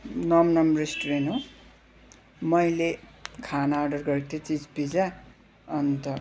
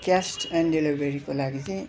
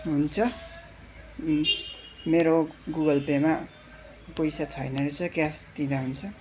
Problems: constant background noise